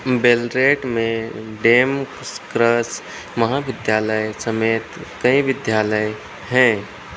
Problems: none marked